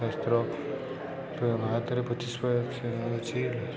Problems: constant background noise, continuous background conversations